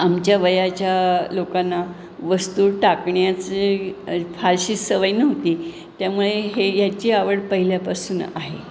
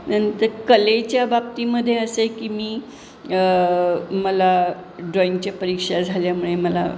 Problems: constant background noise